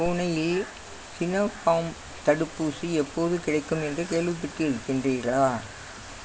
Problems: constant background noise